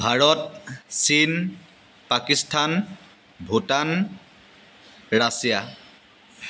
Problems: constant background noise